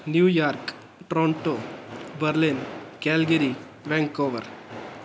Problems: constant background noise